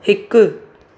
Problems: constant background noise, echo